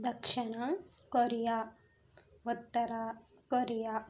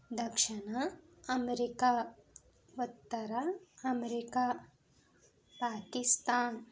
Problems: none marked